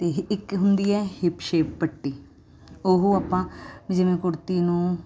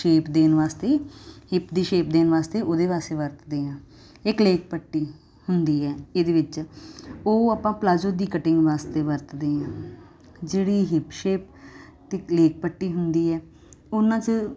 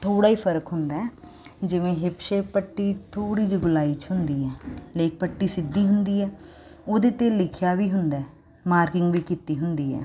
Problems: constant background noise